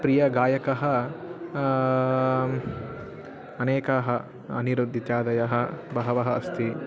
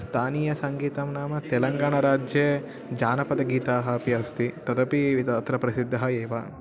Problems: none marked